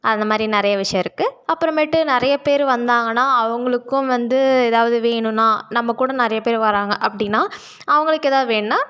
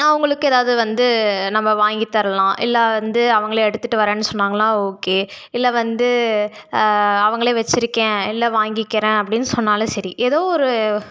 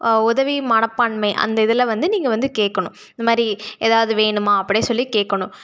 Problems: none marked